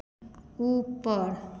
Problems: echo, low volume